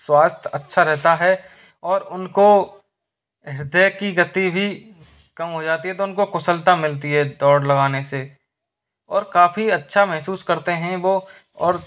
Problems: none marked